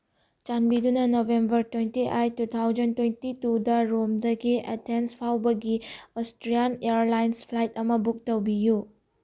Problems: none marked